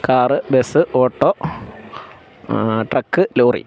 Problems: background sounds at intervals